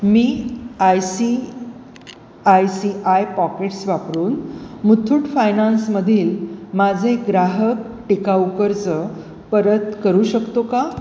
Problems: none marked